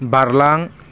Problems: low volume